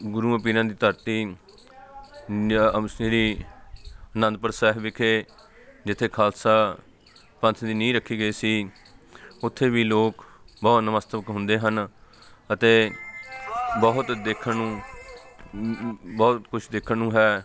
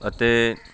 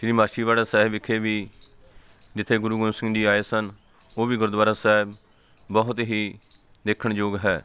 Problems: background sounds at intervals